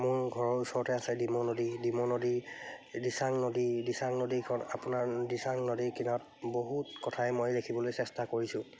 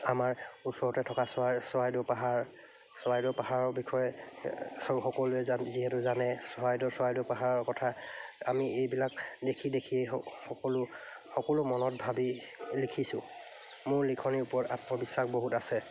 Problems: none marked